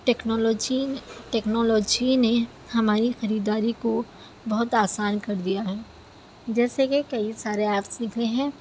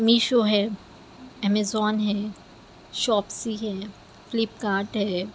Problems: constant background noise